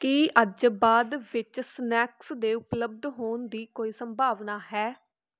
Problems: background sounds at intervals, background conversations at intervals